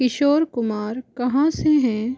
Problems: none marked